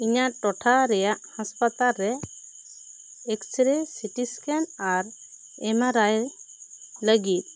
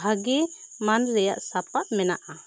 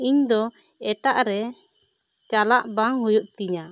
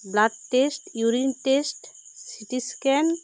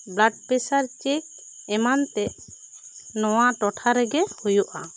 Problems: constant background noise